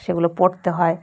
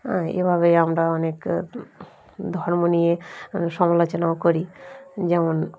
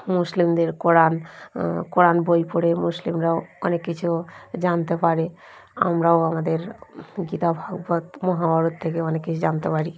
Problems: constant background noise